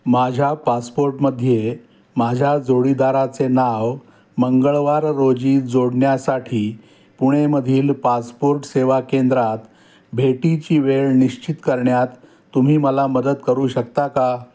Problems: none marked